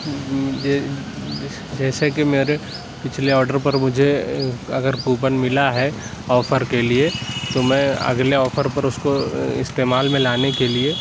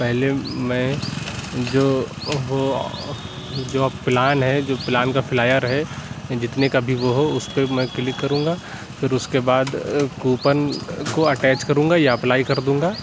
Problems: constant background noise, background conversations at intervals